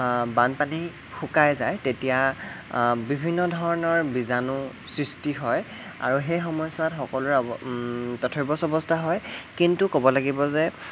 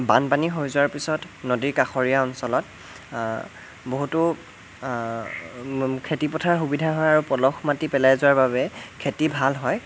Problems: constant background noise